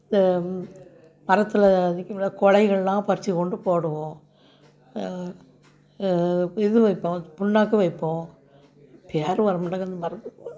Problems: background sounds at intervals, background conversations at intervals